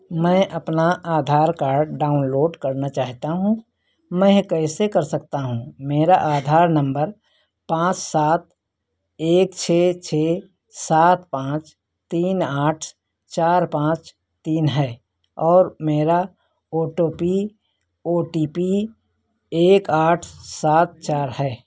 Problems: none marked